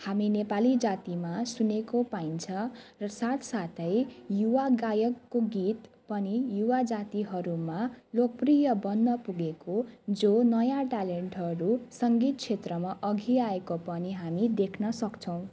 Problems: none marked